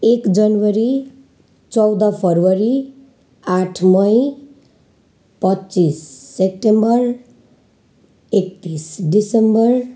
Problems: none marked